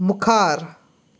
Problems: none marked